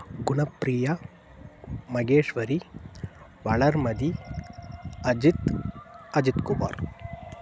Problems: background sounds at intervals